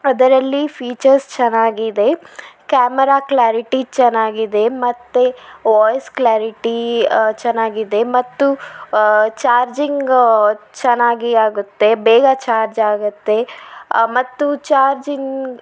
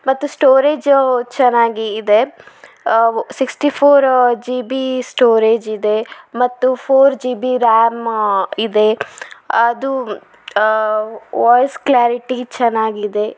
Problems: none marked